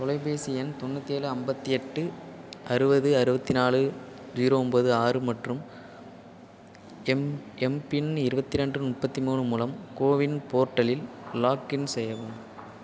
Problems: constant background noise